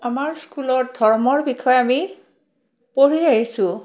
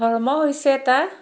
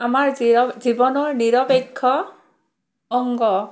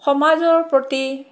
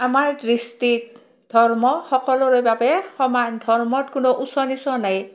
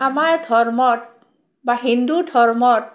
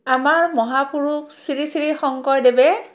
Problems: background sounds at intervals